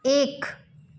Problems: none marked